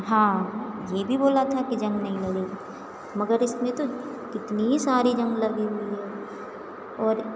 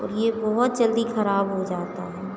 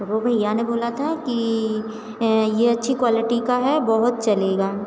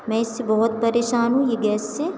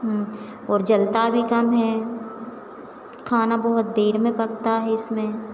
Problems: background sounds at intervals, background conversations at intervals